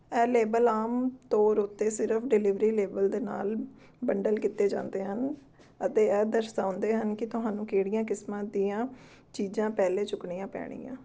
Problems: none marked